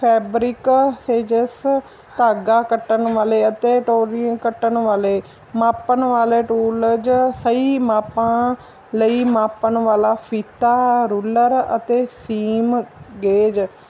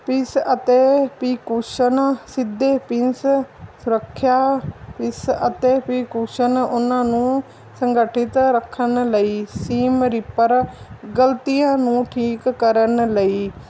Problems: none marked